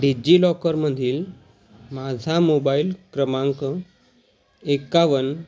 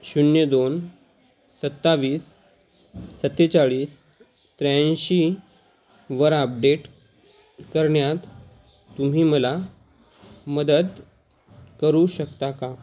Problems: constant background noise, background conversations at intervals